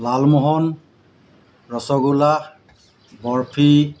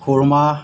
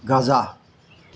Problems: constant background noise